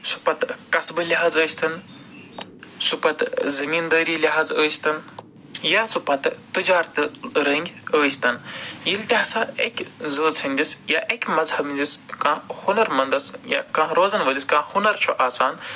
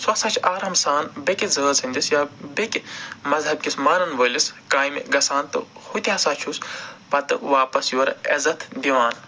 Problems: none marked